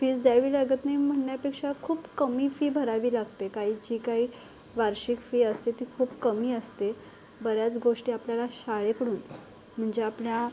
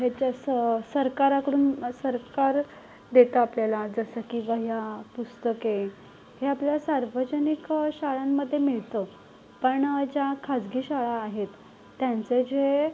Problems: background sounds at intervals